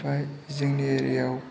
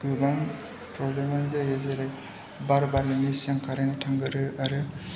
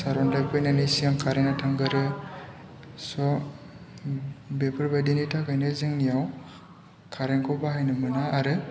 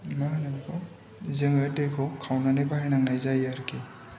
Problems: constant background noise